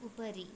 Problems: low volume